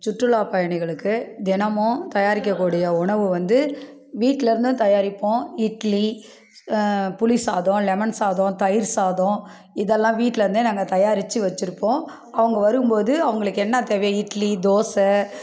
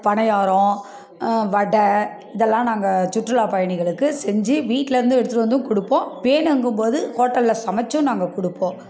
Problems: none marked